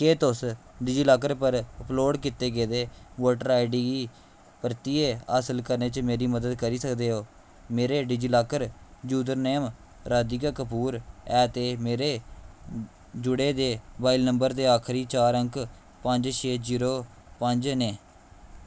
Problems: constant background noise